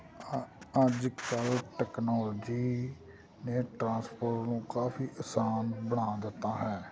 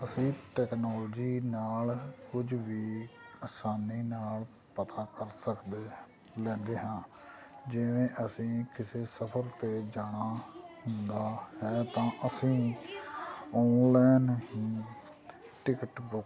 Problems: constant background noise, background conversations at intervals